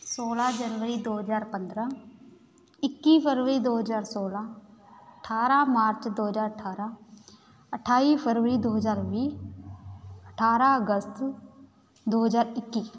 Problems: none marked